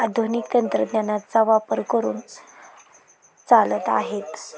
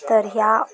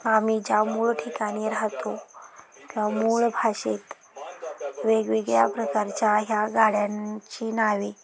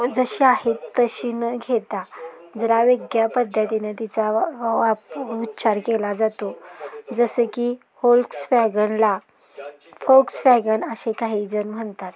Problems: constant background noise, continuous background conversations